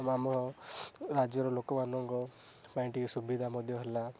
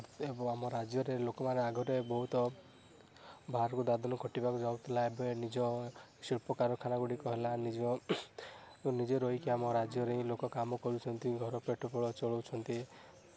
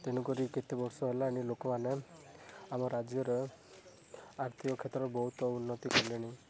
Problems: background sounds at intervals, background conversations at intervals, low volume